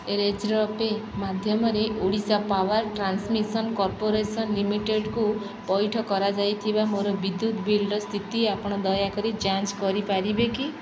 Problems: constant background noise